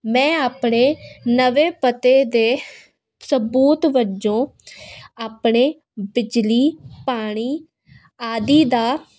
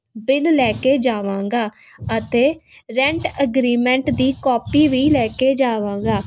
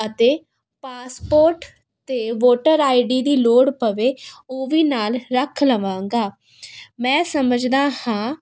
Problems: none marked